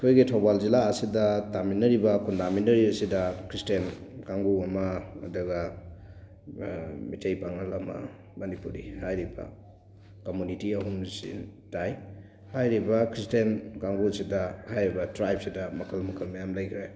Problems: background sounds at intervals, background conversations at intervals